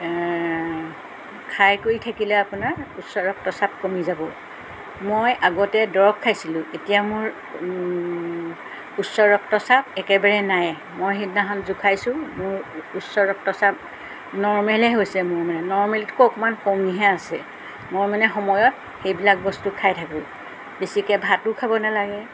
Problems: background sounds at intervals